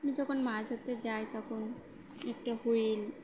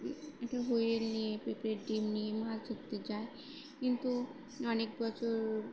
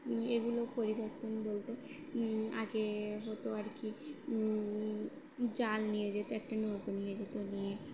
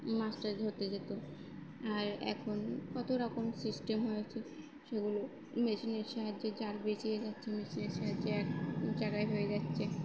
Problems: background sounds at intervals, background conversations at intervals